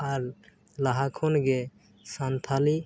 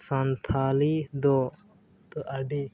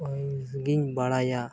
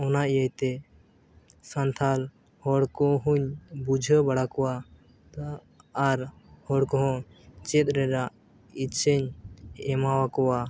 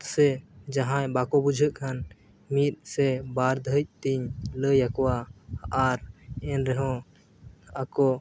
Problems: background sounds at intervals, low volume